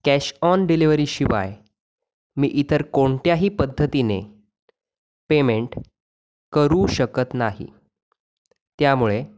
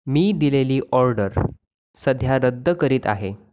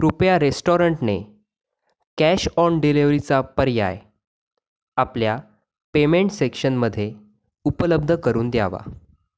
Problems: background sounds at intervals